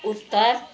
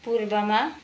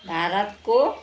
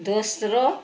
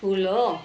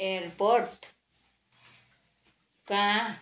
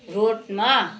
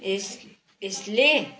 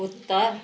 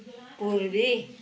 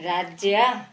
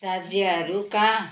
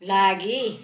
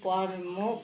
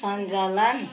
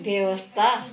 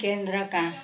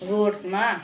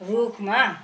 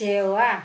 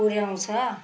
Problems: constant background noise, continuous background conversations